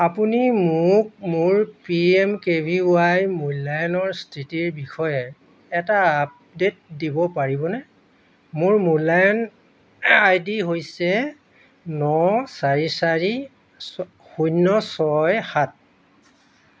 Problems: constant background noise